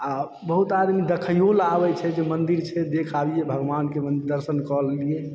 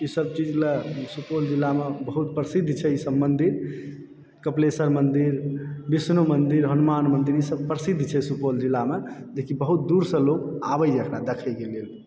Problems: background sounds at intervals